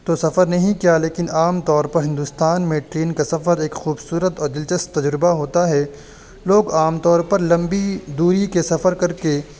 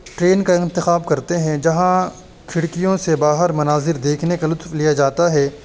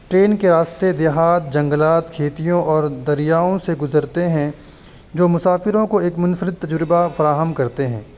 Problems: constant background noise